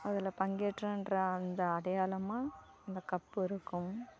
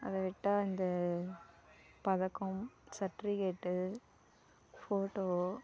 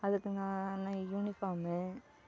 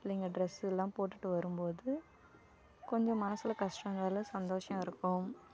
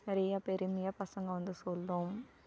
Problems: none marked